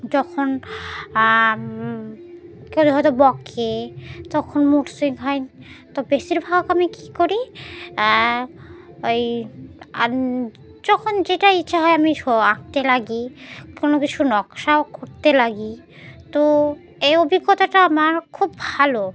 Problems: none marked